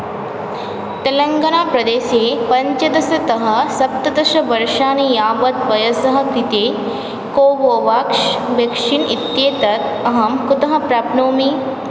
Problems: constant background noise